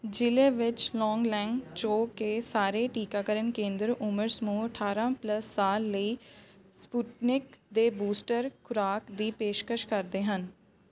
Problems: background sounds at intervals, continuous background conversations